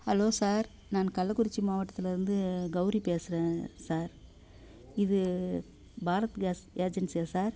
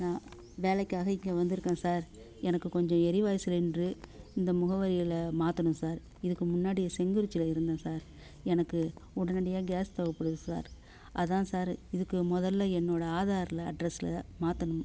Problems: low volume